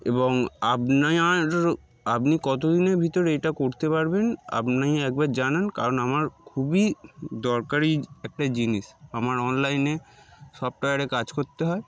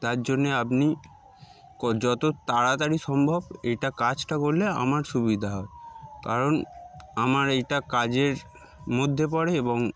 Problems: background sounds at intervals